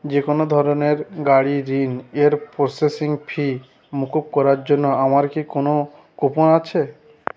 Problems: background sounds at intervals